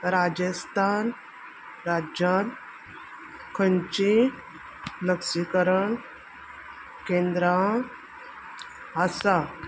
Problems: constant background noise